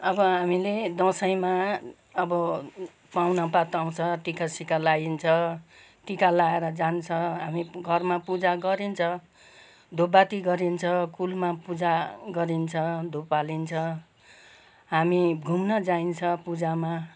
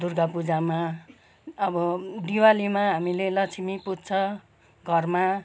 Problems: background sounds at intervals, background conversations at intervals